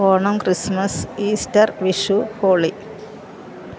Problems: constant background noise